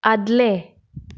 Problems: none marked